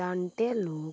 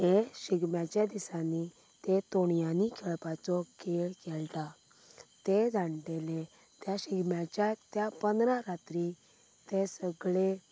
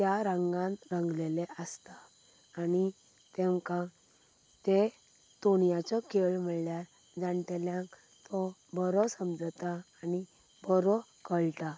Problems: none marked